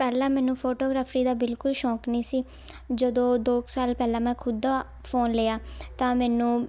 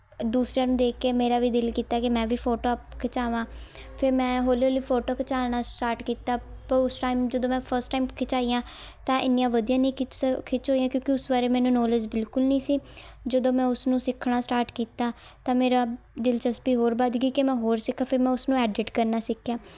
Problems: background sounds at intervals